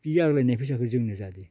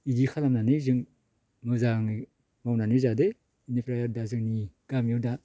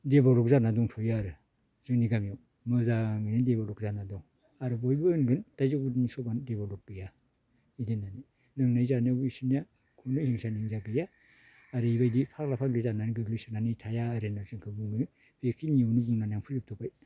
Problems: none marked